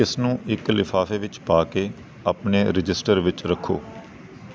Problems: background sounds at intervals